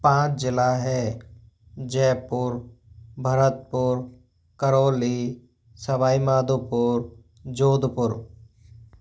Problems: none marked